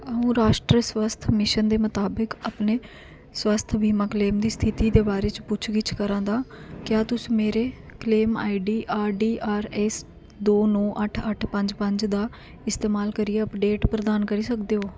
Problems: constant background noise